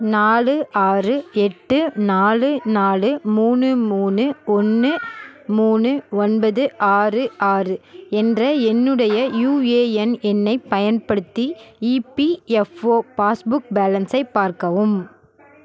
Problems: background sounds at intervals